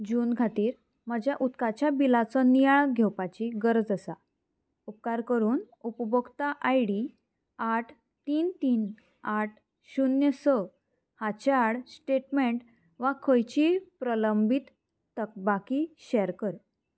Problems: none marked